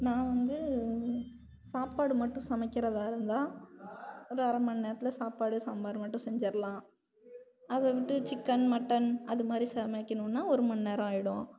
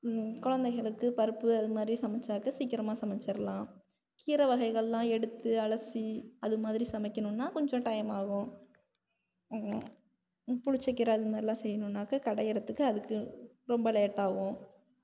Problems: none marked